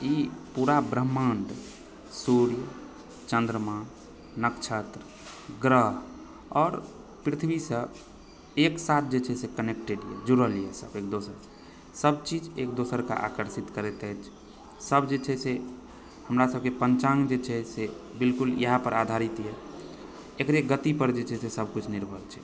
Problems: background sounds at intervals